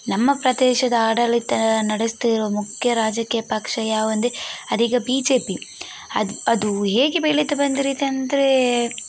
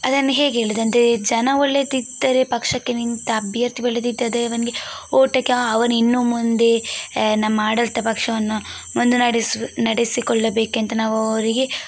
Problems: background sounds at intervals